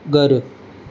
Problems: constant background noise